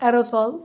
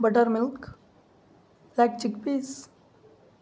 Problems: constant background noise